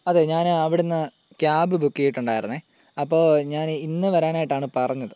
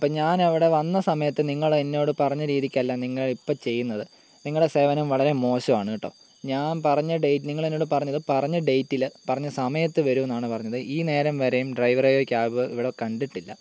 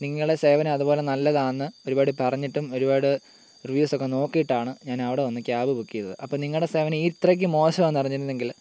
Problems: constant background noise, low volume